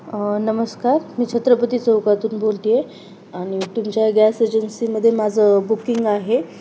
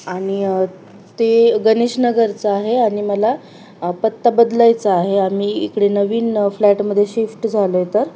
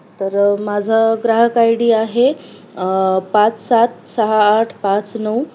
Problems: constant background noise